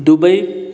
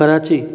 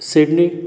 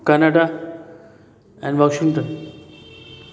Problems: constant background noise, continuous background conversations, echo